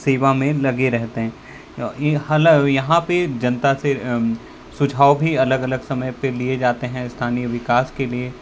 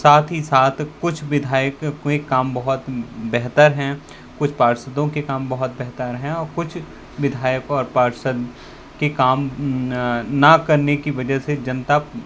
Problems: constant background noise